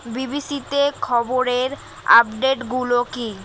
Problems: constant background noise